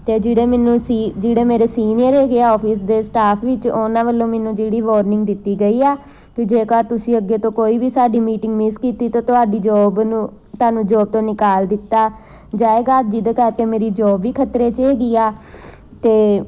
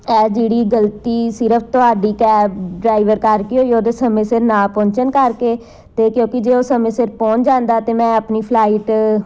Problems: background sounds at intervals